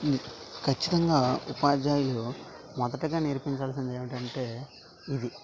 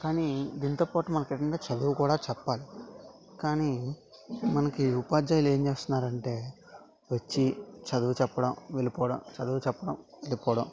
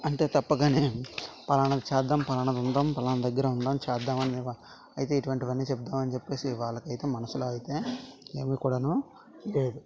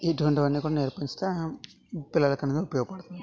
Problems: constant background noise